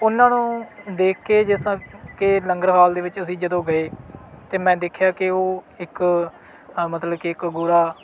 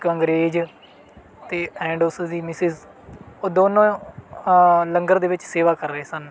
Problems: background sounds at intervals